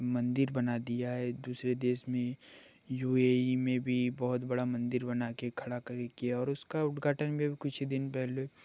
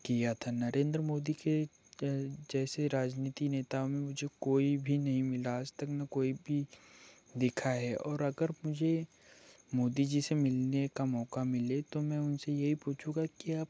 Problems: none marked